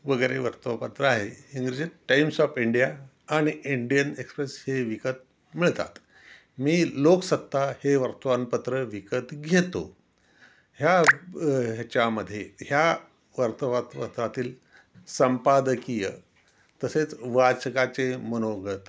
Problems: constant background noise, background conversations at intervals